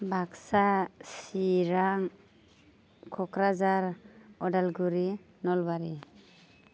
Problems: constant background noise